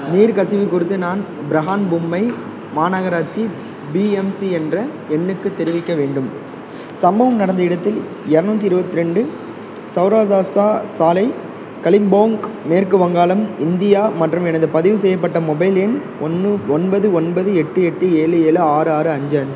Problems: constant background noise